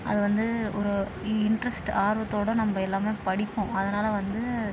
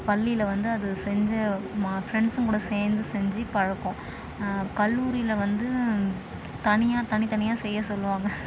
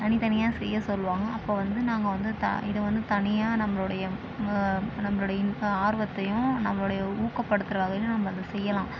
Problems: constant background noise